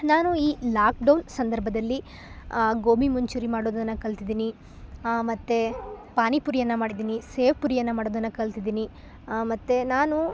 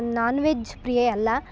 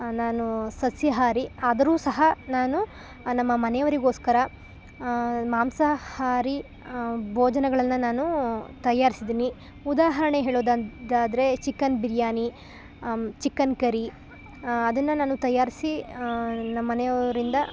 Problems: none marked